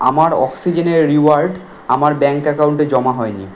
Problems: constant background noise